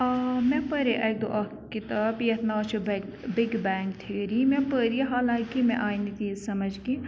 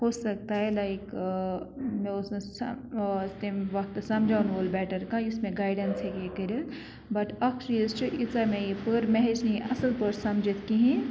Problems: constant background noise